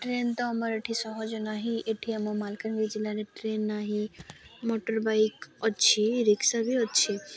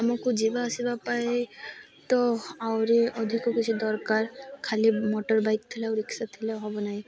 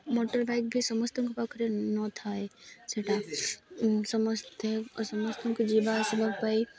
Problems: constant background noise, continuous background conversations